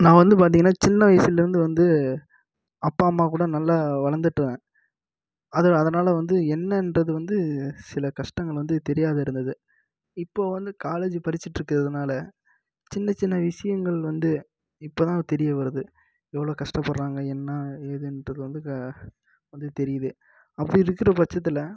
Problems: low volume